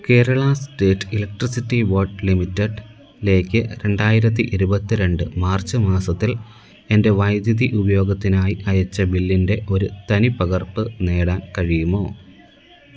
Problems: background sounds at intervals